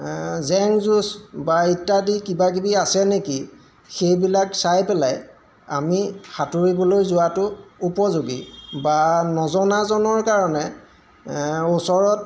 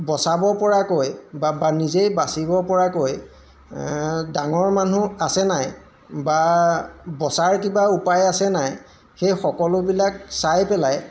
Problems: background sounds at intervals